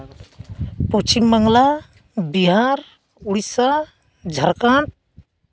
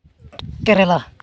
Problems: constant background noise